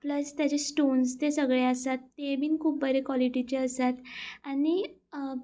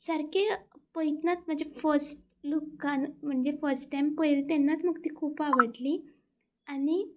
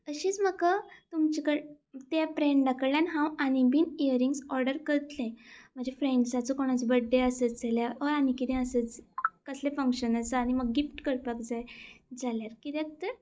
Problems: constant background noise